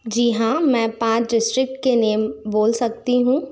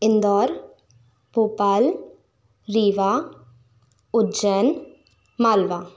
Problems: none marked